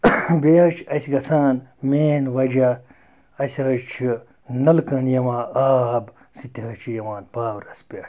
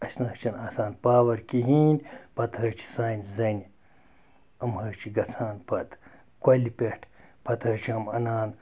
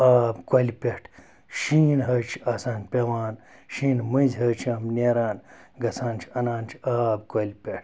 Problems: constant background noise